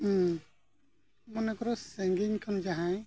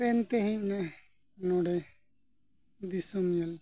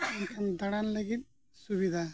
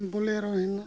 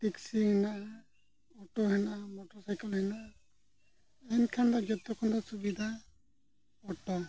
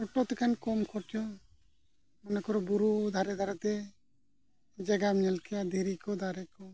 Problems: background sounds at intervals, low volume